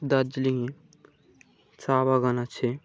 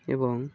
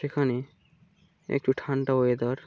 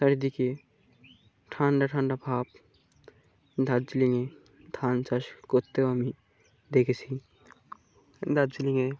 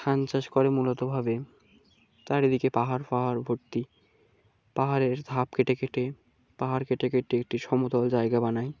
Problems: low volume